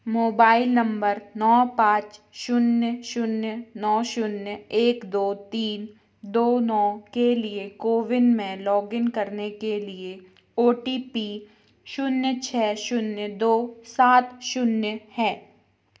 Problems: constant background noise